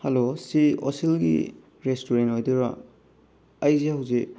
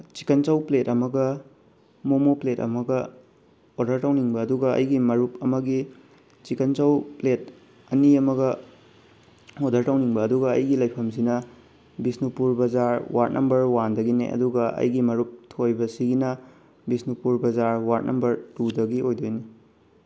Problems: none marked